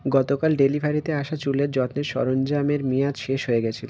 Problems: constant background noise